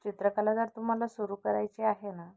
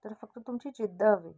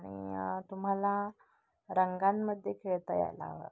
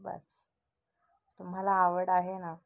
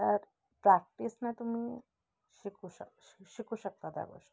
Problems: none marked